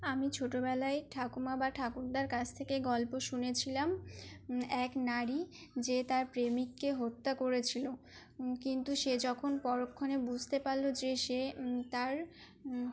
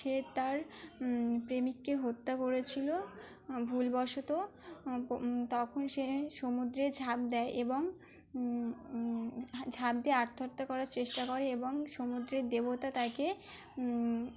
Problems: none marked